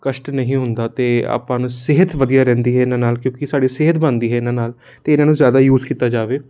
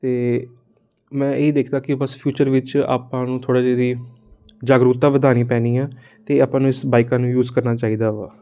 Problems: constant background noise